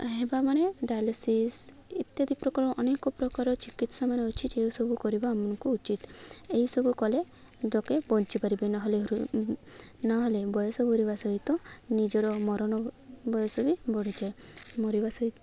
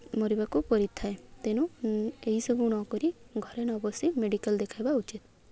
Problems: none marked